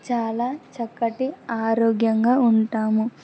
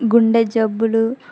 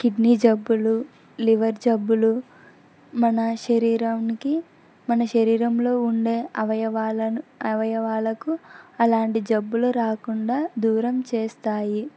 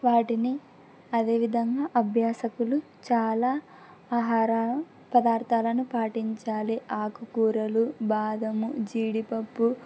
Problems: none marked